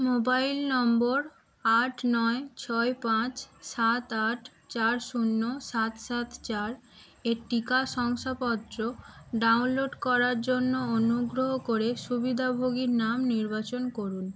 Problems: background sounds at intervals